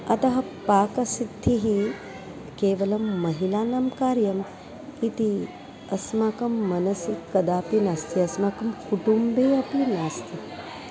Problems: background sounds at intervals